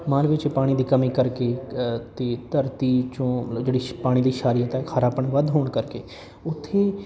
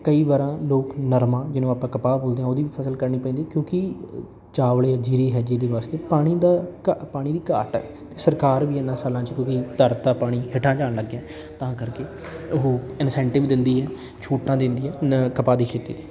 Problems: background conversations at intervals